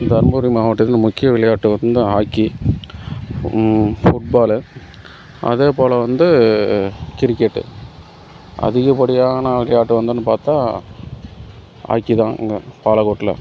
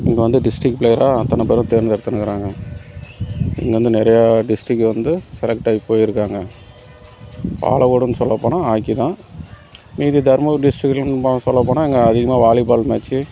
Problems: background sounds at intervals